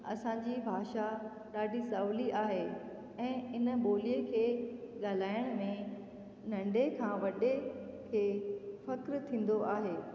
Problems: constant background noise, echo